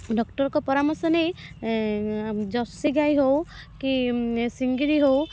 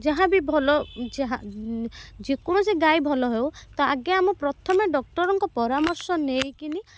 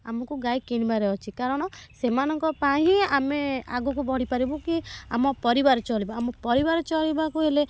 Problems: background sounds at intervals